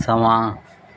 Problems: none marked